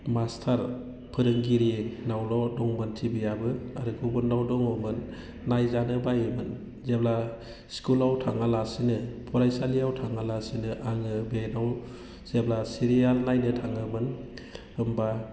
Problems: low volume